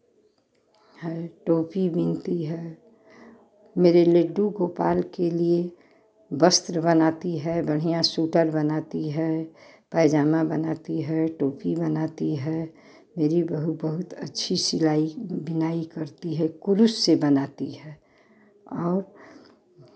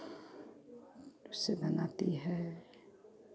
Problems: constant background noise, continuous background conversations